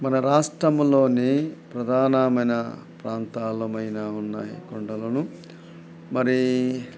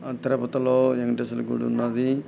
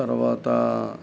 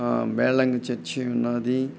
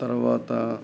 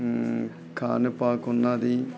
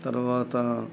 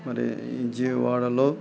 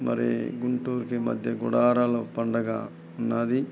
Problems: none marked